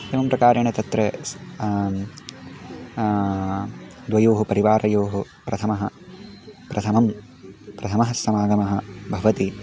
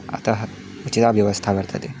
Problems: none marked